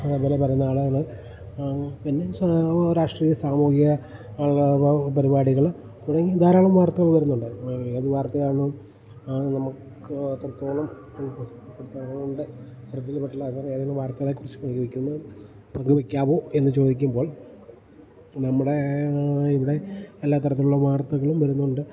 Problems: none marked